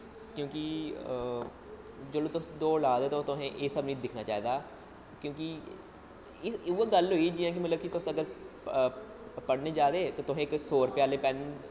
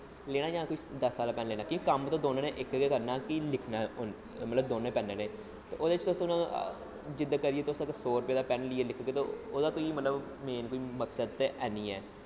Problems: constant background noise, low volume